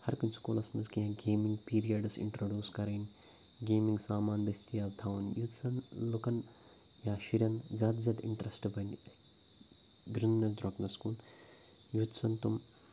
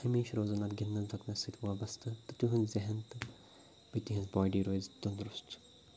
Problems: none marked